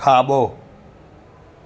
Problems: constant background noise, echo